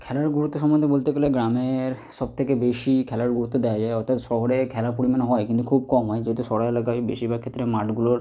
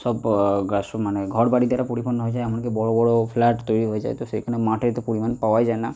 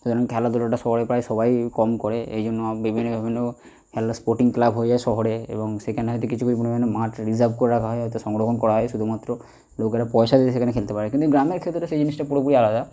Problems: none marked